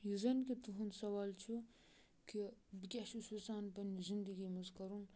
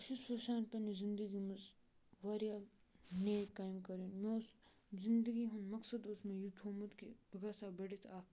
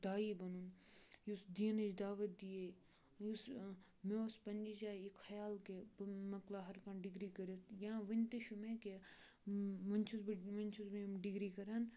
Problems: background sounds at intervals, low volume